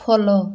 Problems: constant background noise